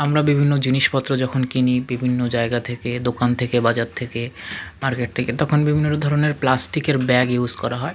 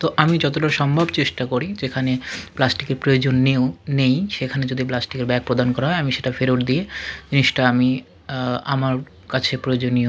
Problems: constant background noise, continuous background conversations